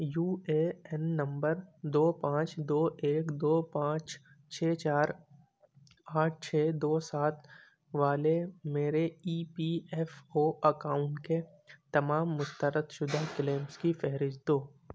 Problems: none marked